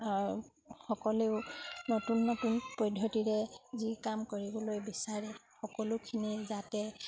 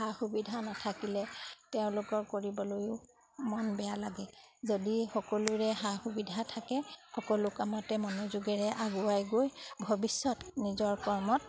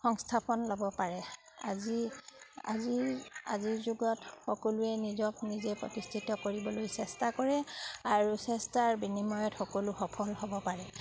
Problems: background sounds at intervals